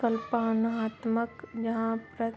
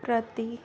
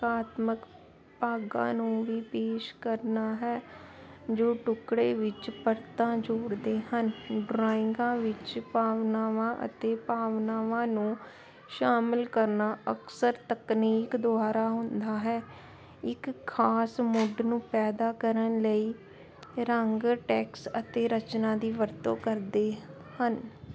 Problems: constant background noise